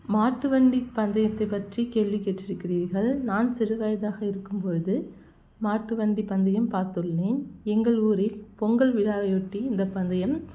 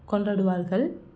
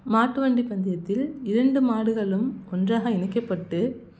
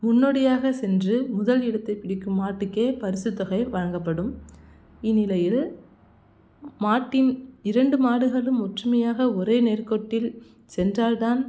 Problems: none marked